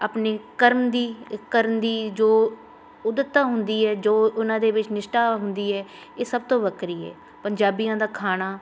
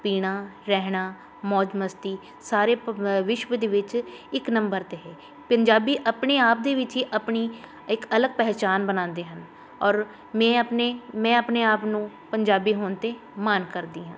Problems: none marked